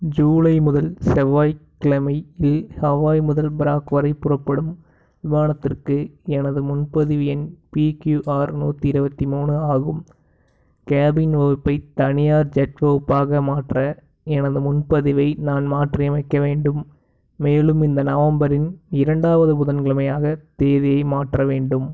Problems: none marked